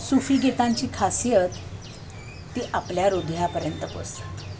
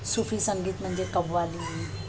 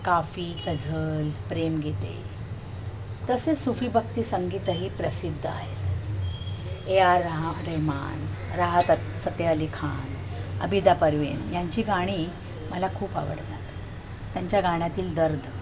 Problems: constant background noise, background conversations at intervals